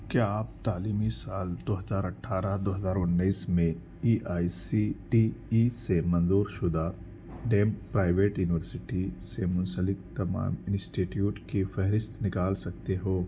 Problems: background sounds at intervals